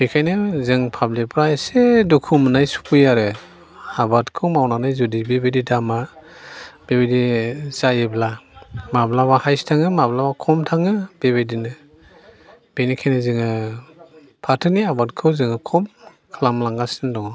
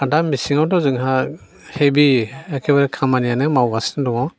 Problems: none marked